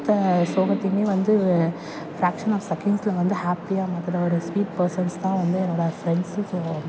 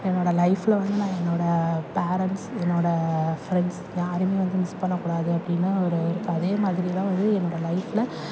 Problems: background sounds at intervals, background conversations at intervals